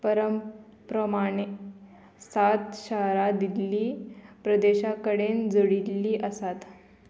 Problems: constant background noise